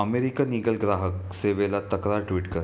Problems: constant background noise